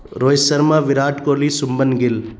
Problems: constant background noise